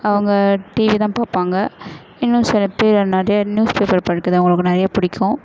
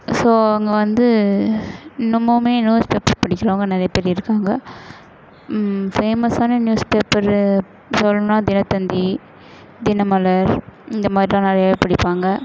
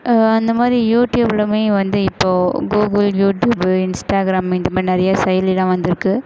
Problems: none marked